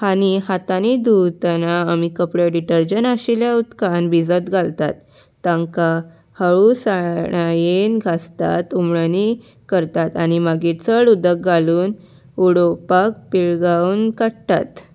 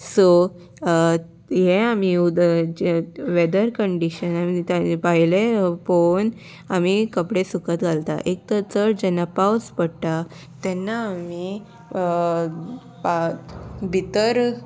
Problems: none marked